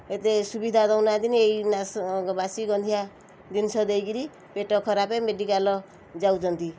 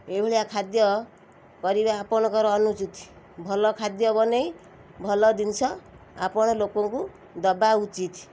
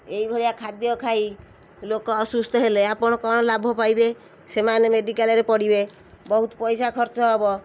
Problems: none marked